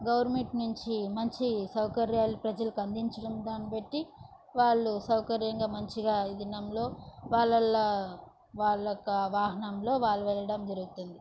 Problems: none marked